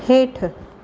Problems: none marked